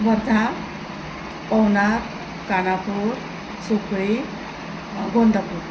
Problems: none marked